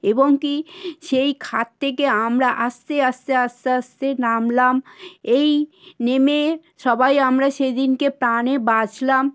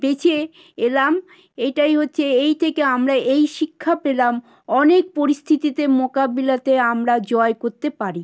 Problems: none marked